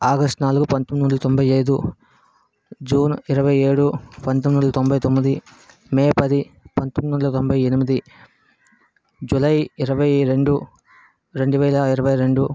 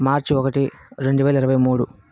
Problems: background sounds at intervals